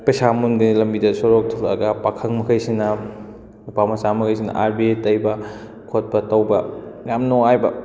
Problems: background conversations at intervals